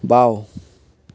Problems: none marked